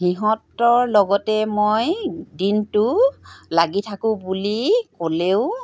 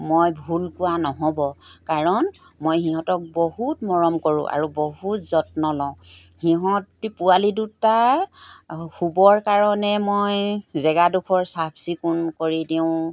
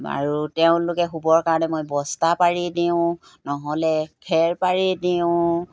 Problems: background sounds at intervals